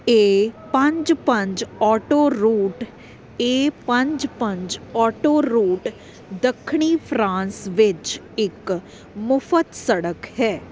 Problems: none marked